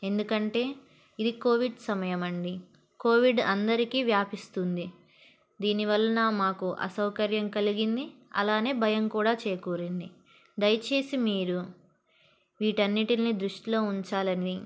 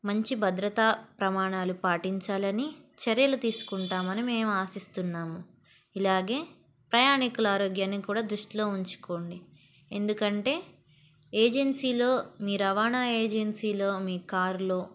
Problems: background sounds at intervals